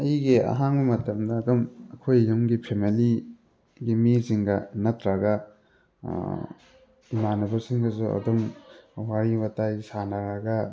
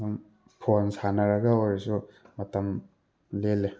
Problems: background sounds at intervals, background conversations at intervals